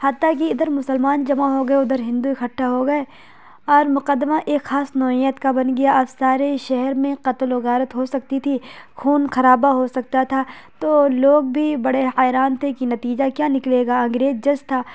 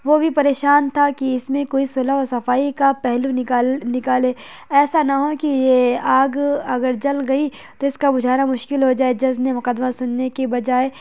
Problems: constant background noise